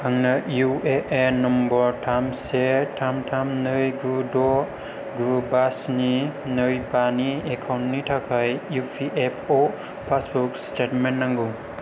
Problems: none marked